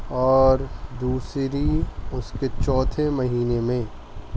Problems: constant background noise